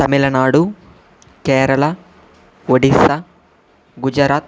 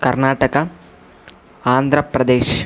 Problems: constant background noise